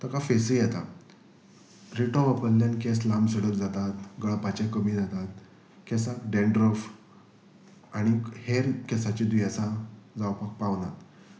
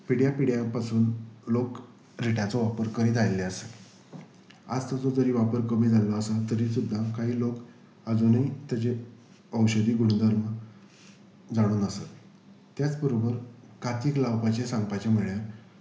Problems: background sounds at intervals